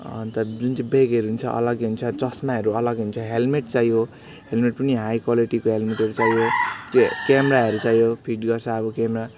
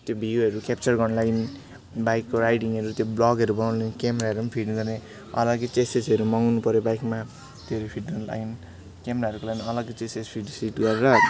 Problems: constant background noise, background conversations at intervals